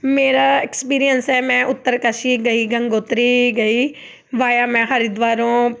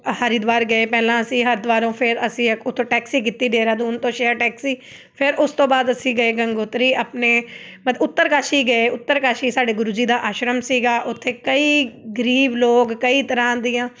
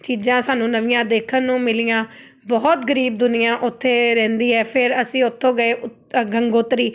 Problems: none marked